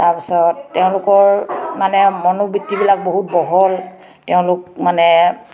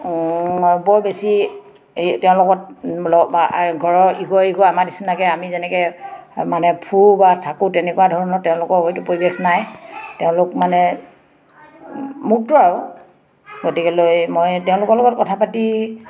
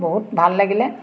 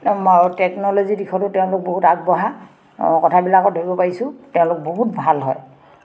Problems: background sounds at intervals, background conversations at intervals